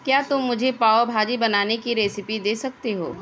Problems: background sounds at intervals